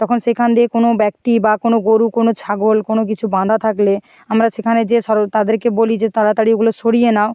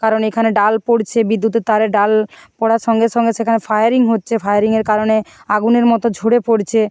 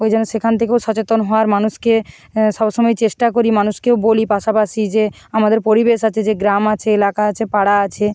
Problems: constant background noise